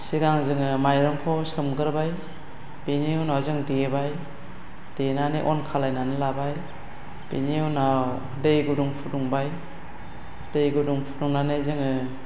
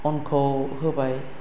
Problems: constant background noise